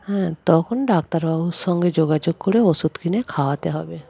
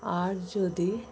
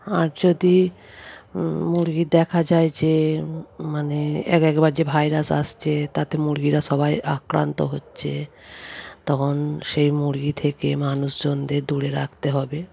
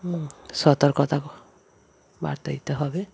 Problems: background sounds at intervals, background conversations at intervals